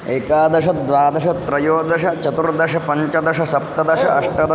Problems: constant background noise